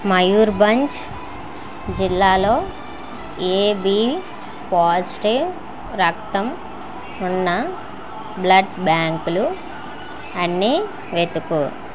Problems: constant background noise, continuous background conversations